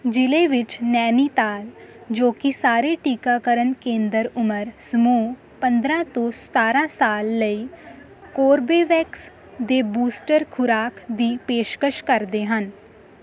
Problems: constant background noise